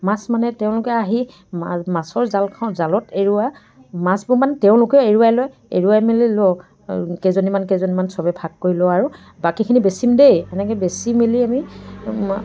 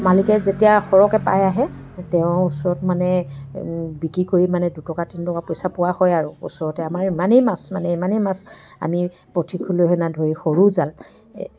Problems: none marked